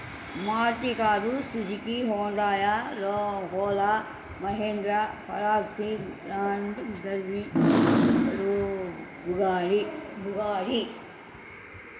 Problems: constant background noise